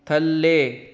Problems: background sounds at intervals